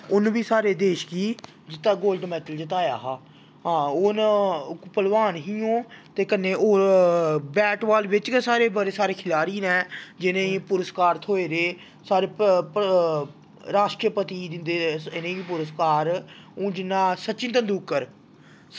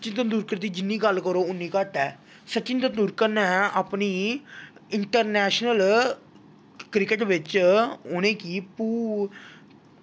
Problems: background sounds at intervals